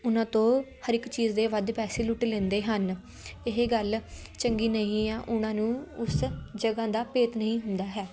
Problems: none marked